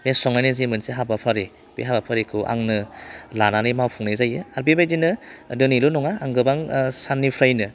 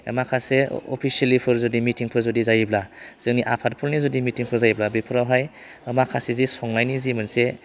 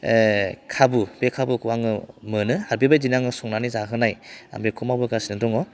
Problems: constant background noise